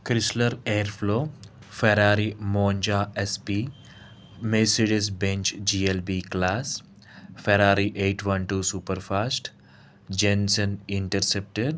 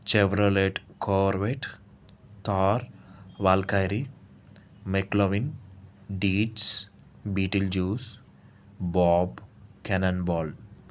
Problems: constant background noise